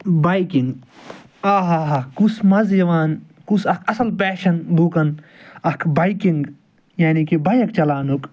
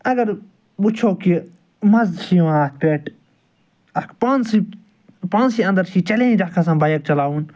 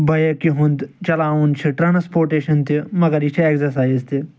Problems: none marked